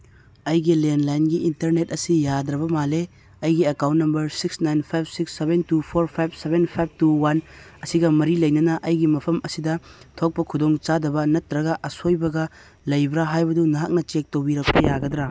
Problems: none marked